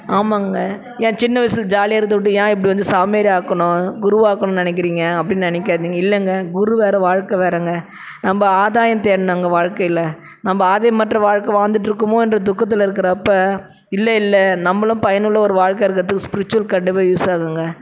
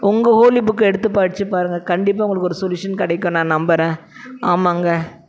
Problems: none marked